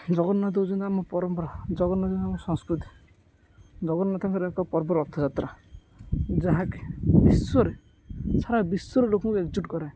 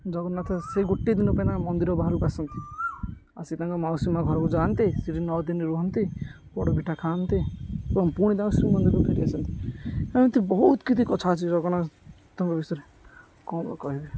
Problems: constant background noise